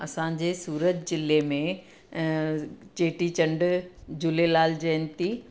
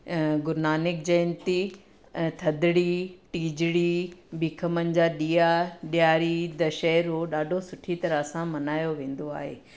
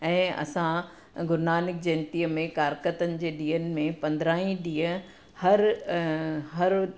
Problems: none marked